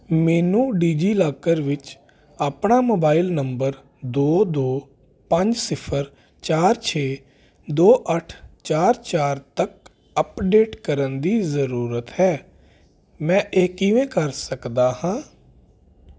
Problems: constant background noise